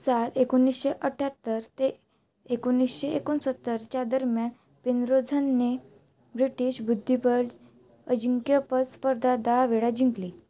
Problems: none marked